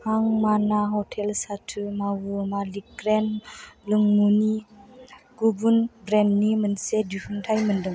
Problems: constant background noise